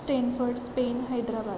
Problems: constant background noise